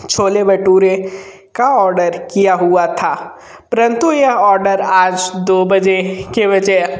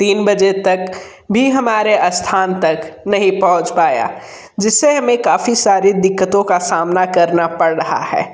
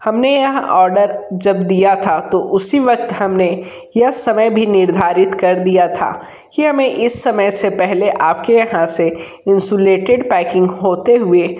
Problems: background sounds at intervals